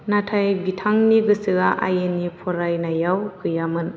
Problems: constant background noise